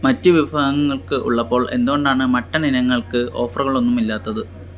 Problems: constant background noise